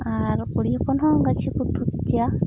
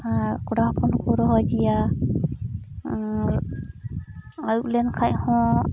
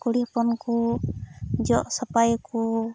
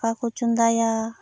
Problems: constant background noise